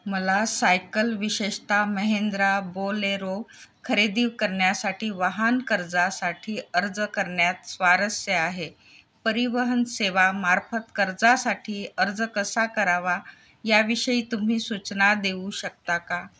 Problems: none marked